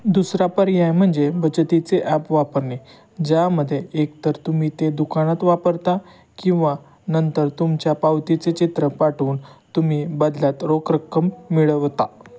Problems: background sounds at intervals